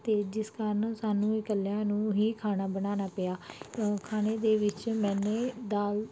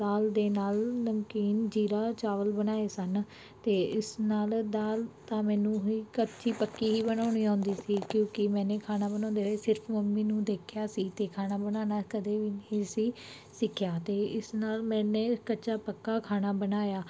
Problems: background sounds at intervals